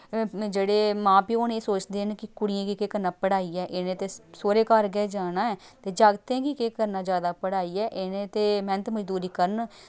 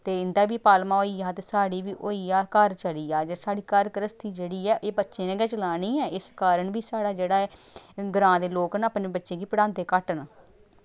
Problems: none marked